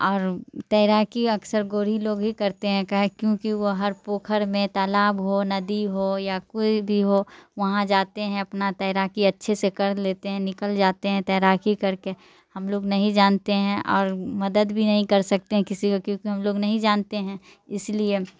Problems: none marked